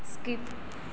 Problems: constant background noise, low volume